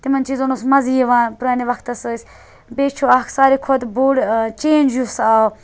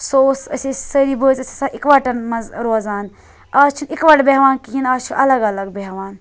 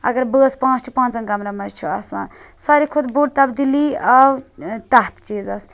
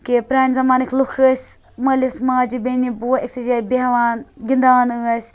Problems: none marked